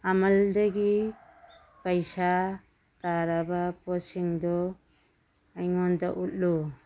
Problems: background sounds at intervals